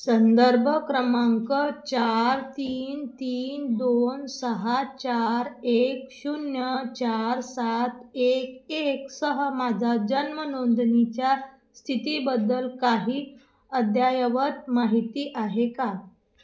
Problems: none marked